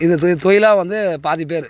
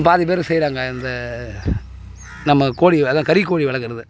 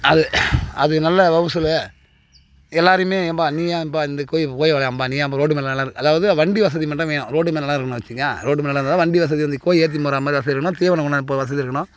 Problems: constant background noise